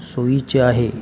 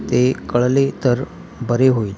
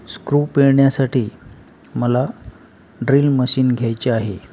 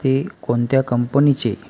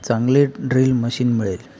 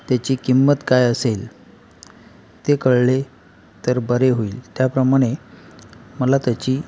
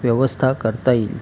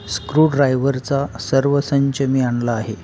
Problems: constant background noise